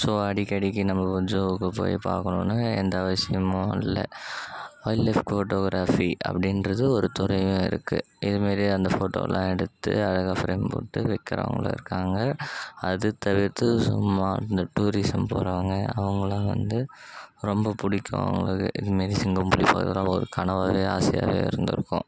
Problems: background sounds at intervals